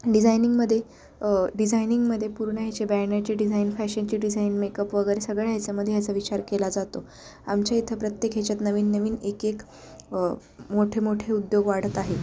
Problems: none marked